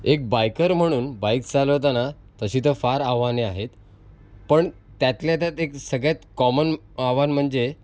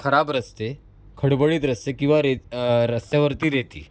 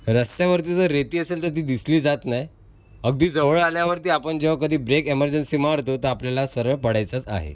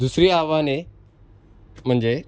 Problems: constant background noise